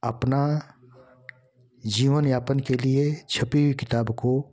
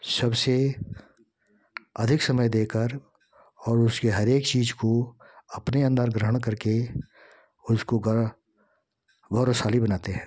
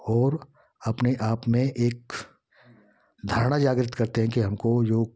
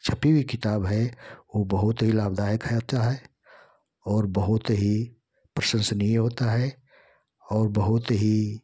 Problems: constant background noise